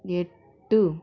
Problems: constant background noise